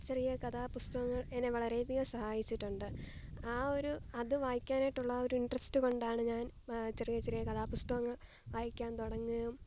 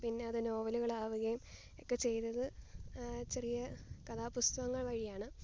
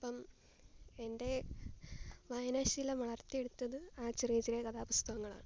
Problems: none marked